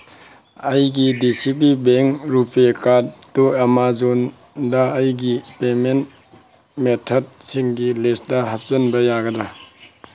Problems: background sounds at intervals